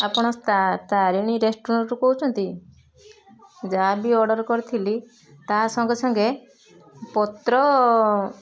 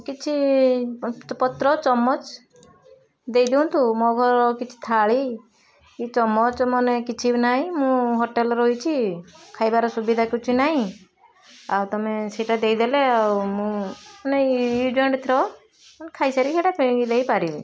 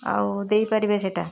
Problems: constant background noise, continuous background conversations